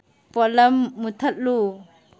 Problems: none marked